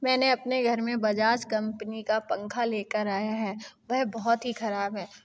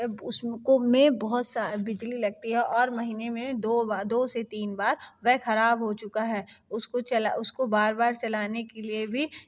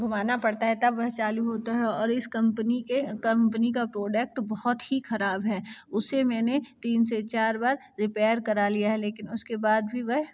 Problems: constant background noise